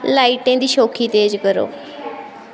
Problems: constant background noise